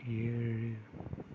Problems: low volume